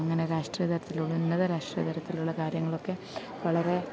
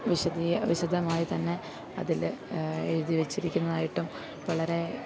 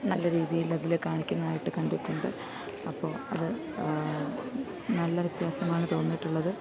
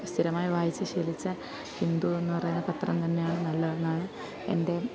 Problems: none marked